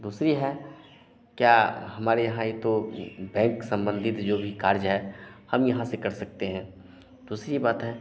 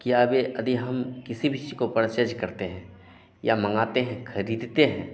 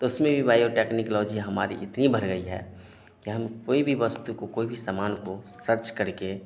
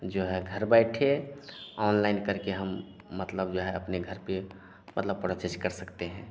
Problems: none marked